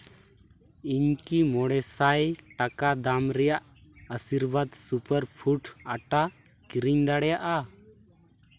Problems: none marked